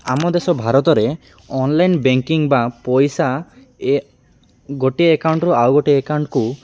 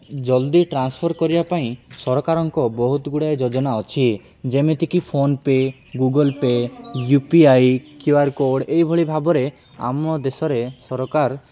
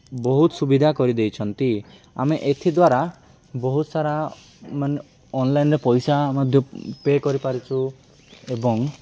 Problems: none marked